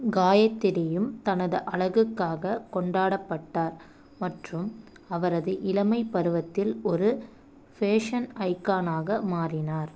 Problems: none marked